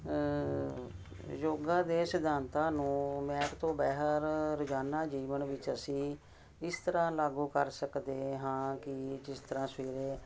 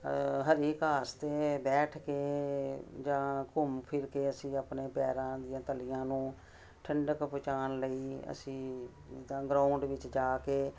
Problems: constant background noise